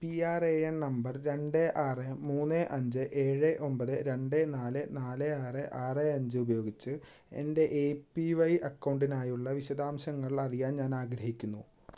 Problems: background sounds at intervals